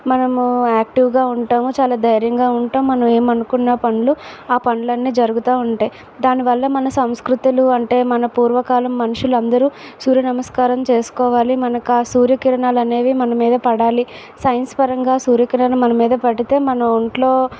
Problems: constant background noise